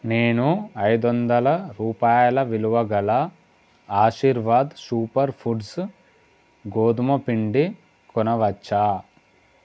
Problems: constant background noise